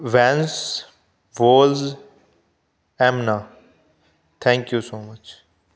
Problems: none marked